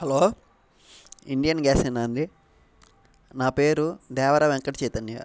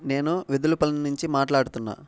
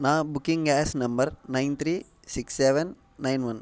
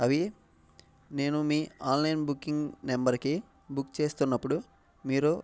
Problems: none marked